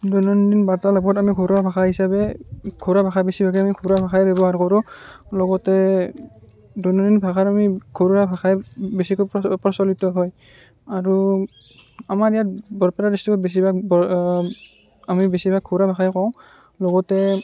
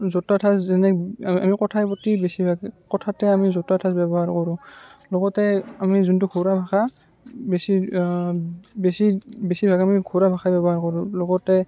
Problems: none marked